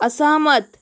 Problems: constant background noise